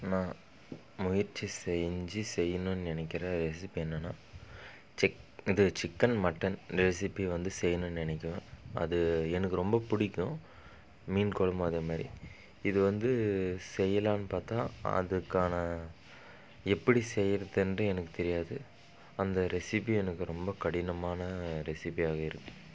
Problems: none marked